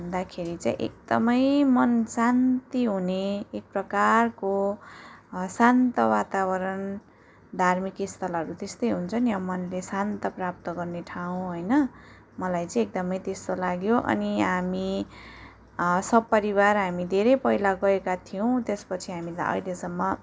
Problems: background sounds at intervals